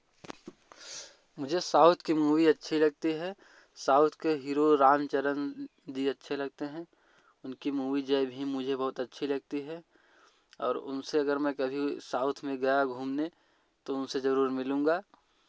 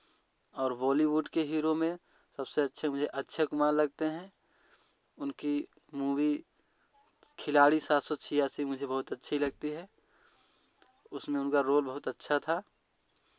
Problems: background sounds at intervals